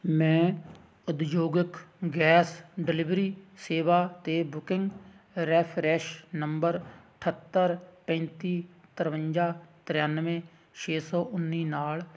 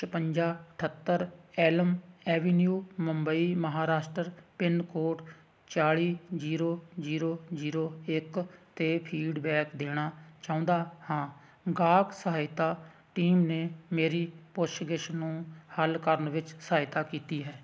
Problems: none marked